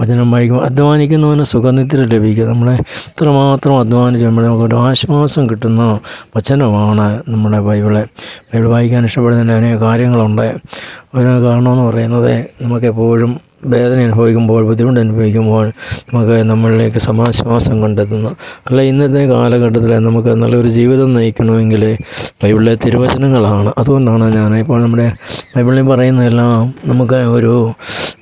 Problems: background sounds at intervals